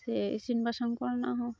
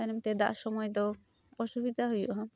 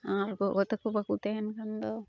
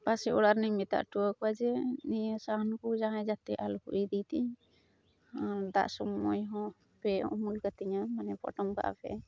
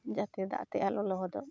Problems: background sounds at intervals